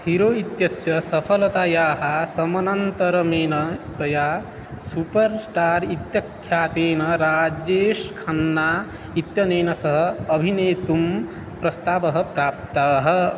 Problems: constant background noise